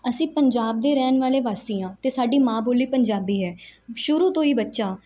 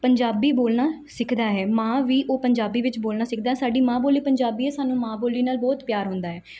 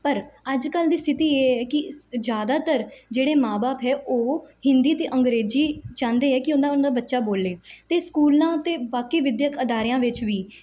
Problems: background sounds at intervals